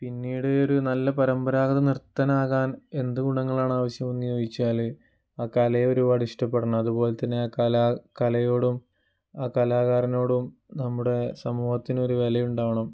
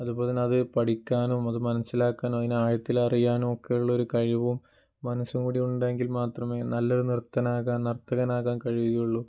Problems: low volume